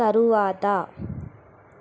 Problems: constant background noise